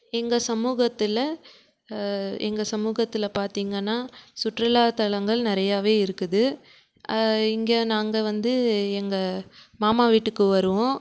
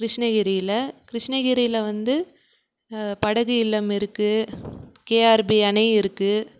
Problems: background sounds at intervals